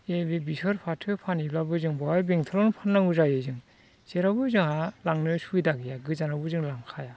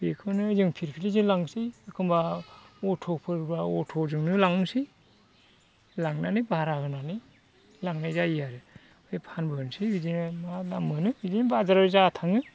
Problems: constant background noise